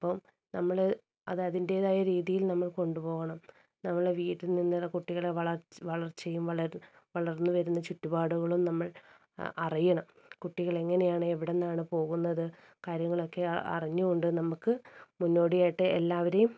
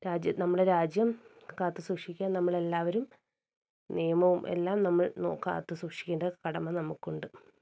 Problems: low volume